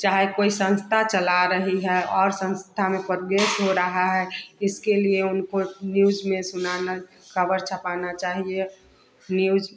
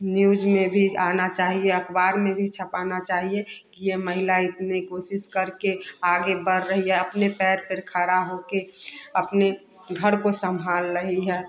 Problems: none marked